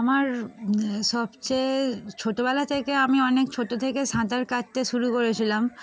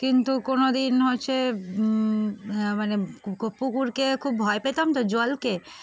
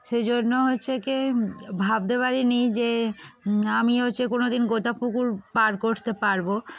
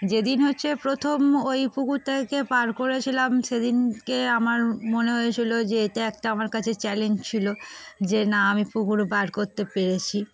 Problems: constant background noise